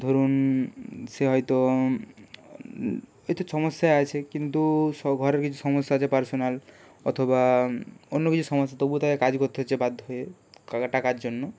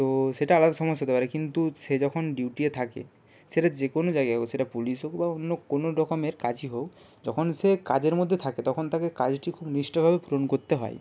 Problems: constant background noise